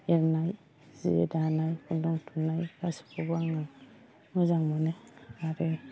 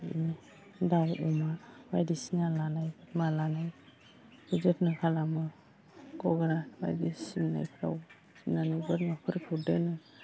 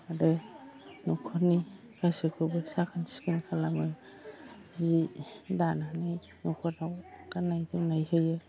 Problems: low volume